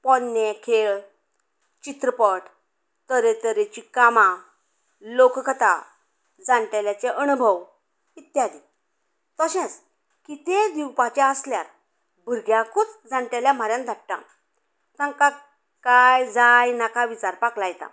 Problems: background conversations at intervals